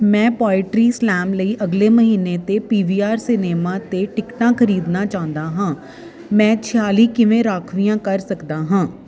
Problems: none marked